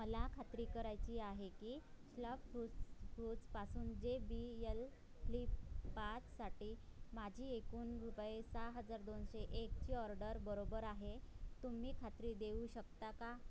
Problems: background sounds at intervals, low volume